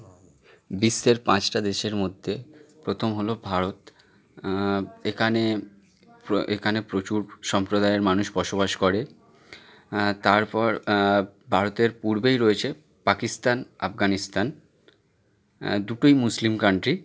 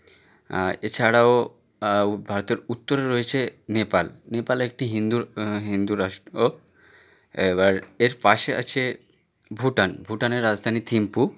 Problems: background conversations at intervals